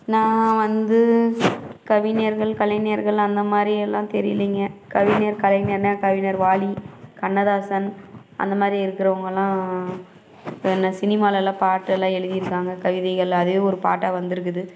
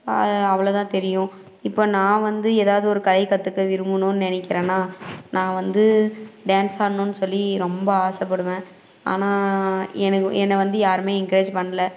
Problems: none marked